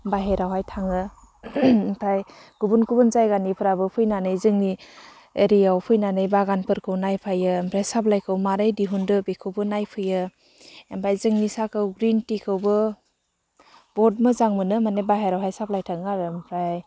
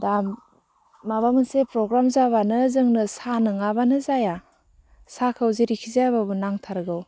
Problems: none marked